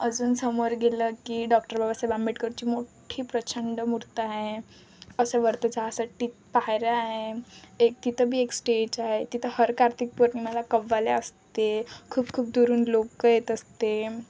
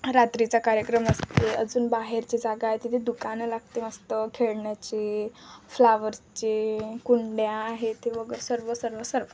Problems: constant background noise, continuous background conversations